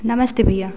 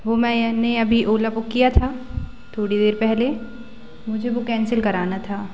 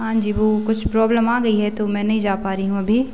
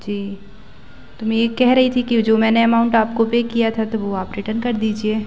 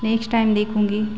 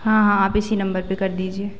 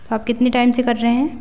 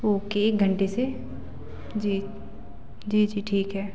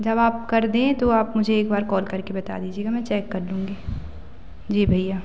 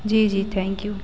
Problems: echo, low volume